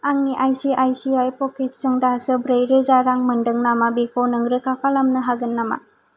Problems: none marked